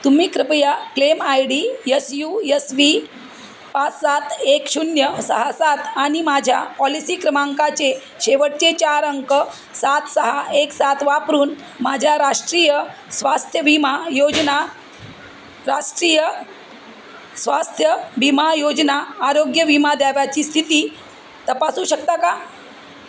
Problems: constant background noise, background conversations at intervals